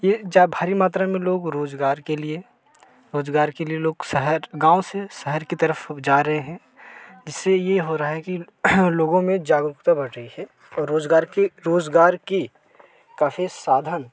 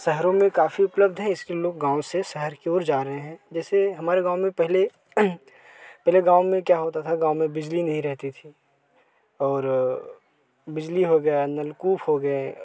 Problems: constant background noise